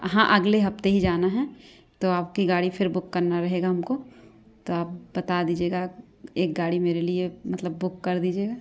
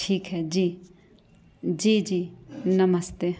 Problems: none marked